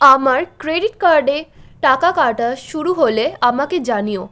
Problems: background sounds at intervals